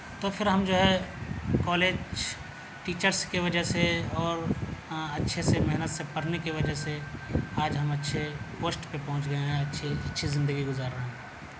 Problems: background sounds at intervals